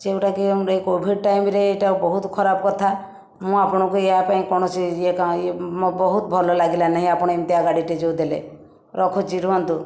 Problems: background sounds at intervals